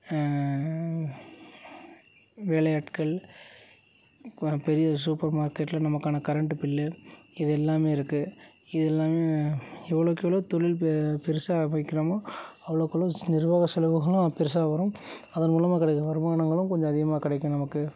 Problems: none marked